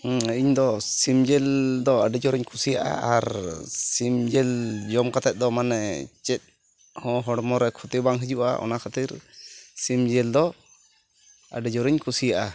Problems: none marked